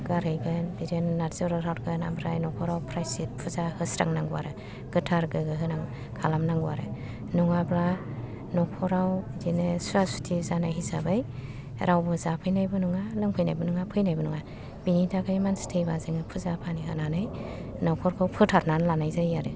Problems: low volume